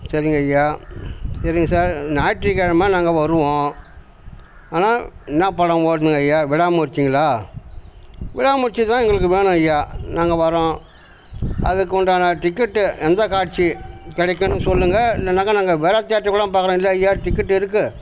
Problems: constant background noise